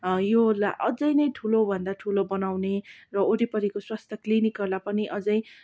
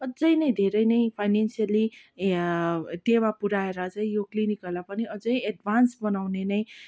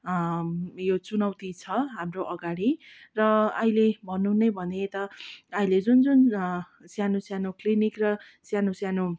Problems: background sounds at intervals